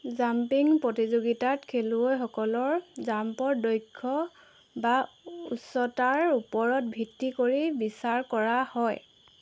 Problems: none marked